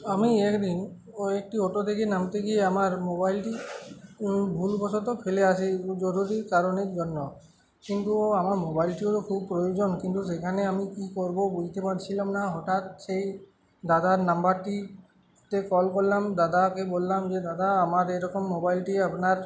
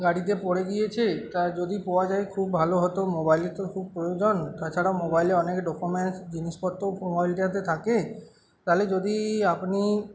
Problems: none marked